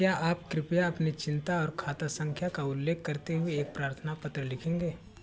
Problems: none marked